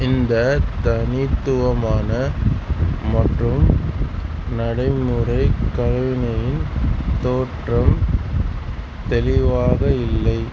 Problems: none marked